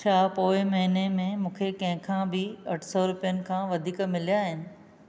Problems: none marked